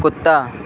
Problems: constant background noise